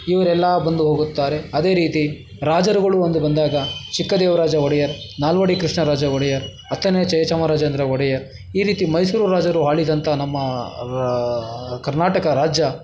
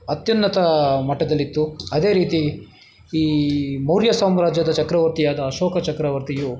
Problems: none marked